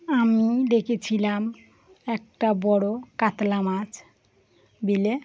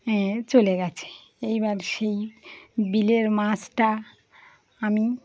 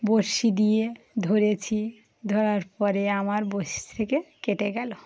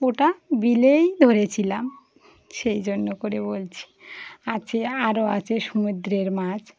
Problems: none marked